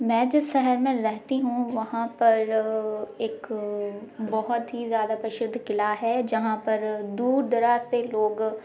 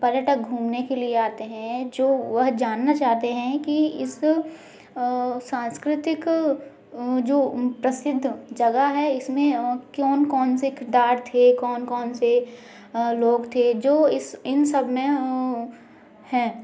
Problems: none marked